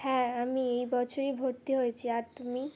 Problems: none marked